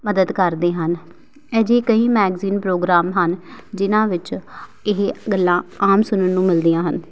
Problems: background sounds at intervals